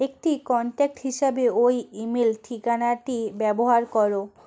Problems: none marked